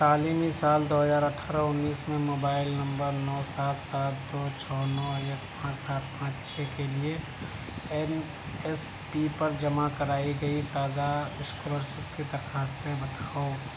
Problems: constant background noise, low volume